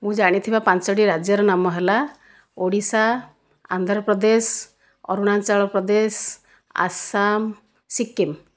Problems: none marked